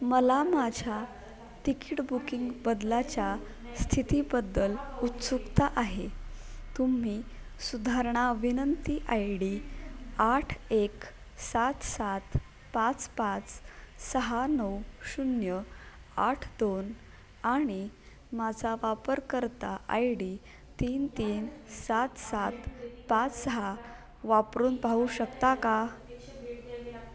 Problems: constant background noise, continuous background conversations